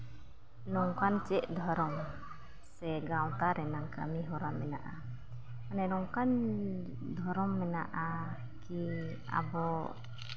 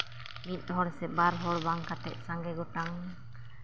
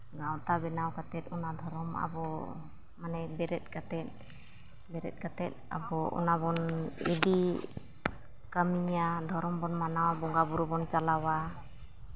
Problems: low volume